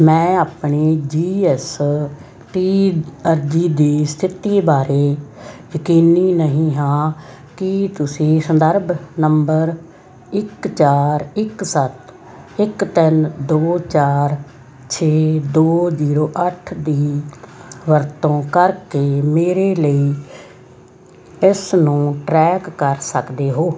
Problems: constant background noise